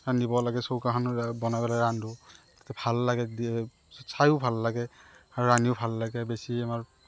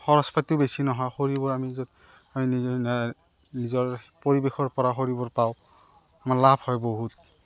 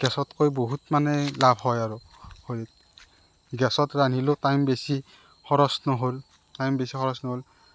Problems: constant background noise